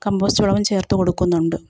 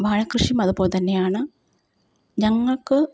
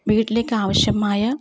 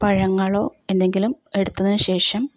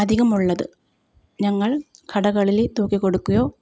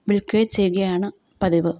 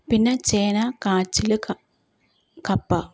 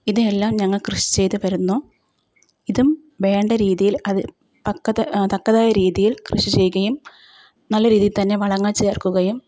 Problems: none marked